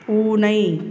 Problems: background sounds at intervals